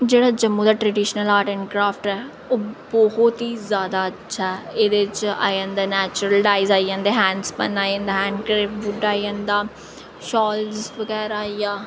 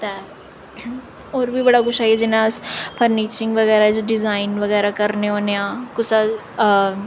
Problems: none marked